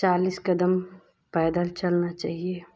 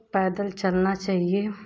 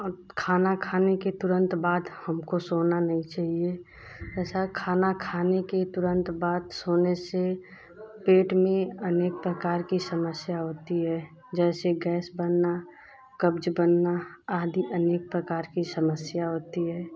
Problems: constant background noise